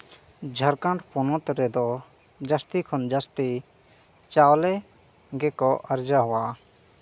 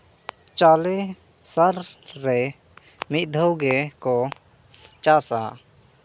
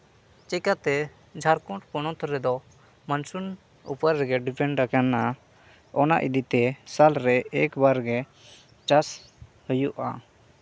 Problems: none marked